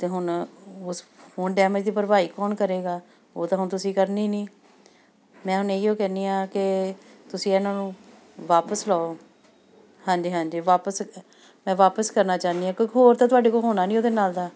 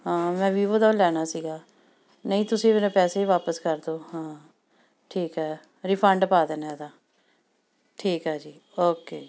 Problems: background sounds at intervals